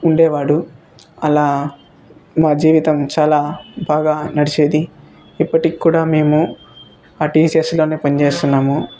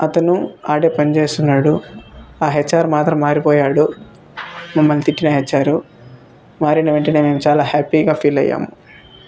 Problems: none marked